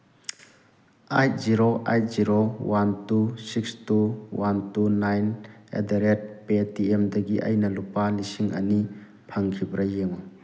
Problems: none marked